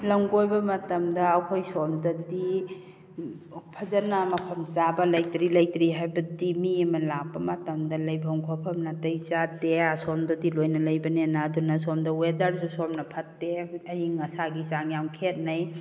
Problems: none marked